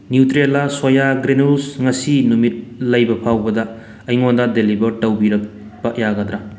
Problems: none marked